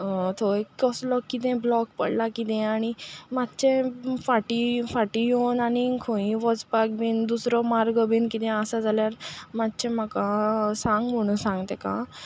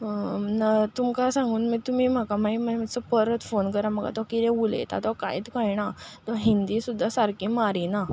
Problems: constant background noise, background conversations at intervals